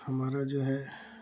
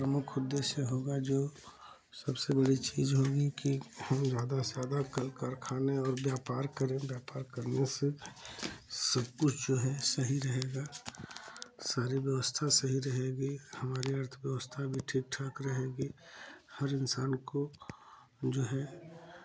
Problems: none marked